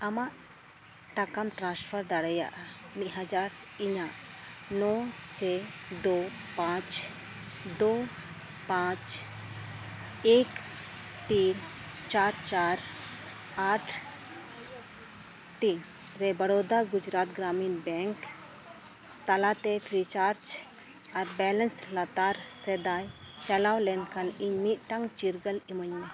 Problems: background sounds at intervals, continuous background conversations